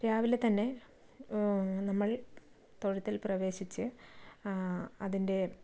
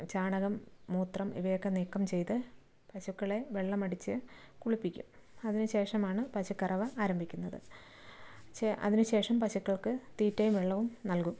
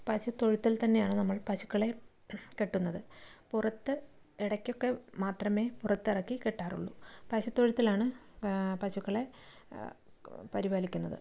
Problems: background sounds at intervals, low volume